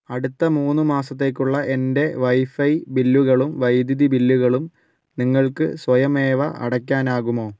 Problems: none marked